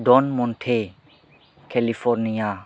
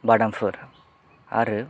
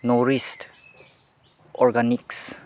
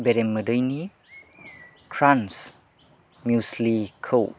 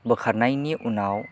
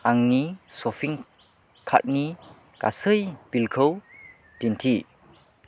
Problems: none marked